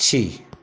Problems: constant background noise